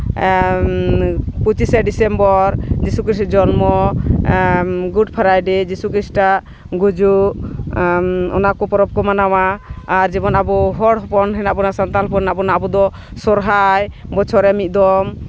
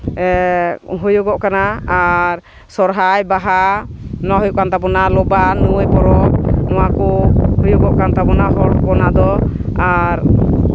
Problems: constant background noise